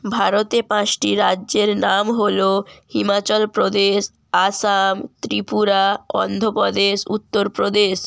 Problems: none marked